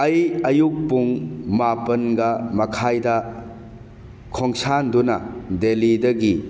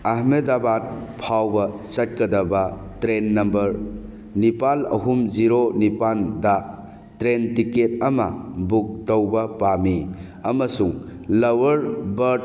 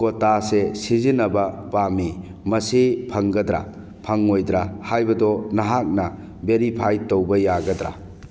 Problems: background sounds at intervals